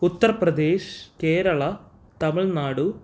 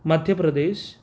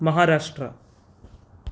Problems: none marked